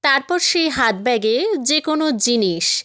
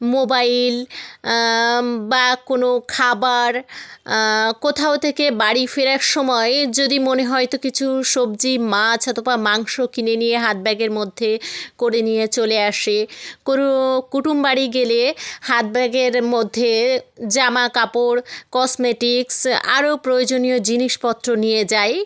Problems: none marked